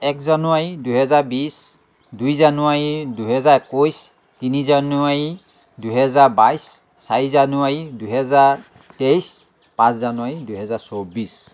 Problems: background sounds at intervals